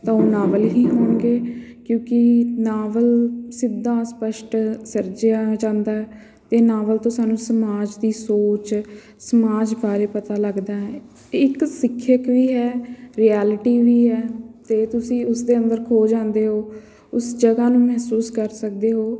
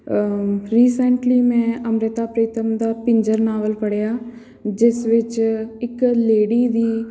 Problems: none marked